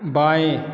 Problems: constant background noise